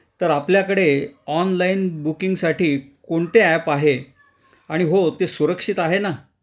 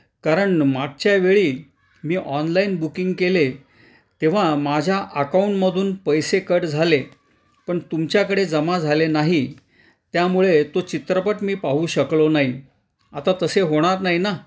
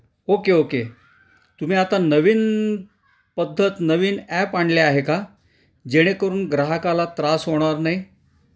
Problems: none marked